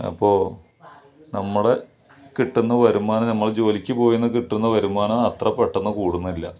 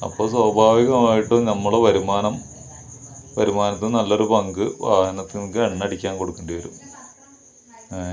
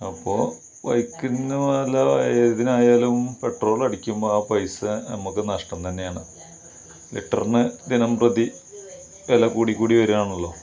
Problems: none marked